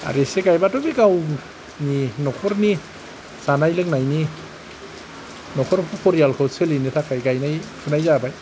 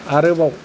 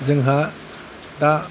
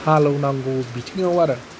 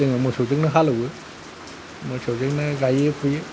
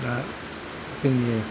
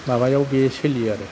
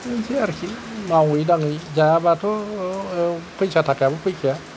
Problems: none marked